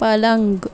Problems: background sounds at intervals